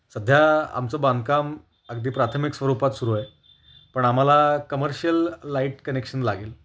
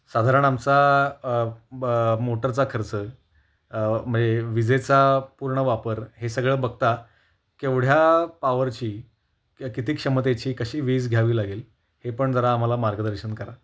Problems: constant background noise, background conversations at intervals